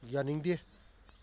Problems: low volume